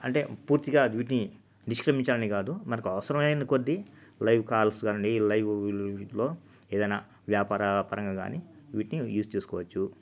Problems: constant background noise